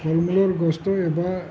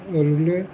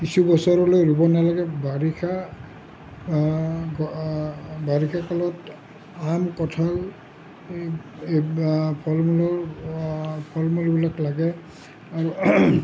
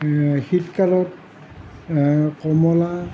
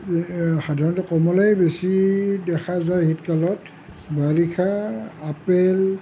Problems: low volume